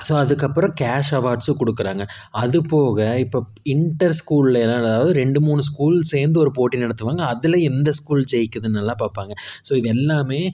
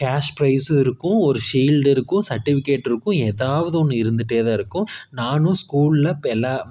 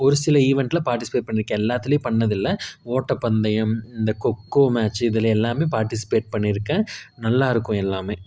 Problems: none marked